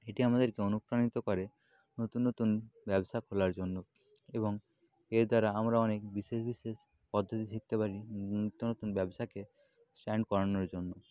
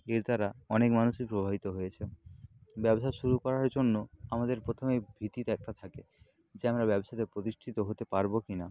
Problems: background sounds at intervals, low volume